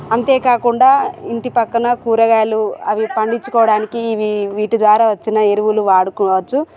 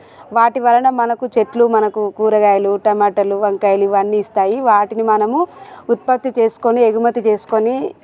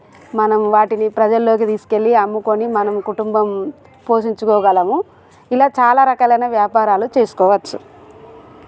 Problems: constant background noise